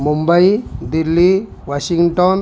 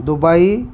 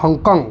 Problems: background sounds at intervals, background conversations at intervals